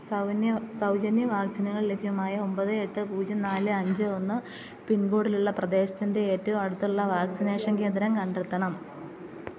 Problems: constant background noise